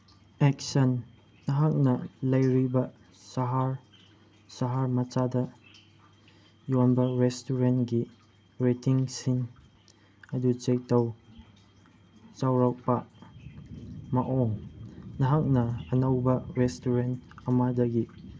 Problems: background sounds at intervals